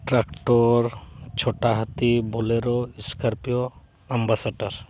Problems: background conversations at intervals